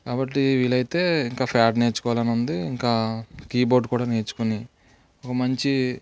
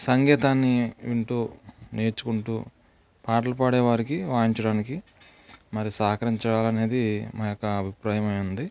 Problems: low volume